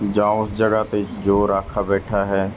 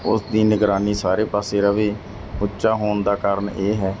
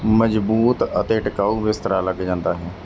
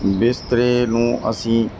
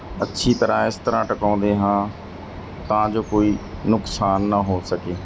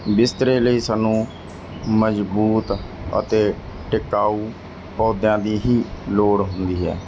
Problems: none marked